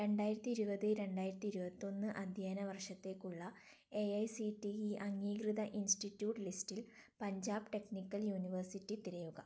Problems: low volume